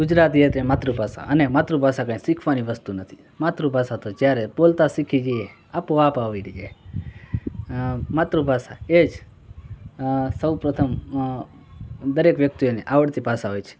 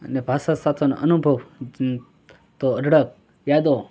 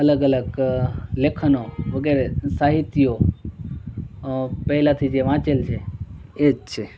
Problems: background sounds at intervals